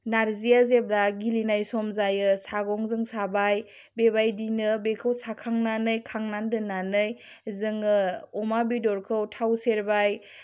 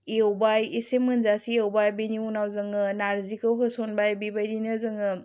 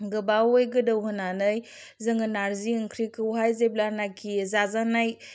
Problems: none marked